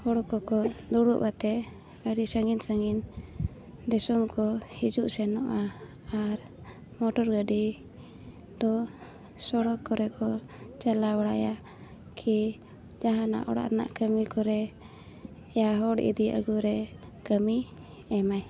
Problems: constant background noise